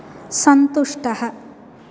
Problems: none marked